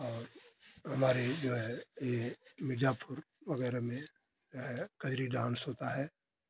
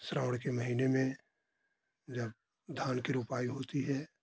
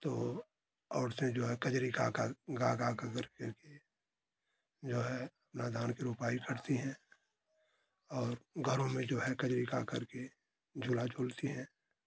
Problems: constant background noise